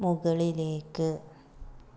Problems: low volume